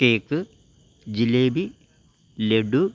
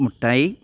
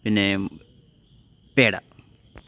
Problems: none marked